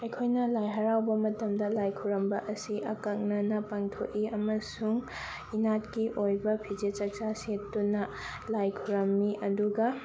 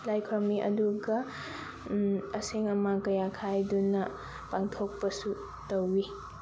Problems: none marked